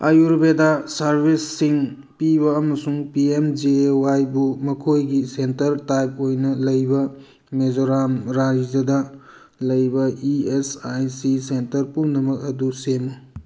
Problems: none marked